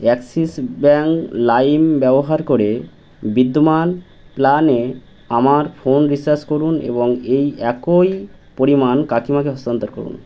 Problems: none marked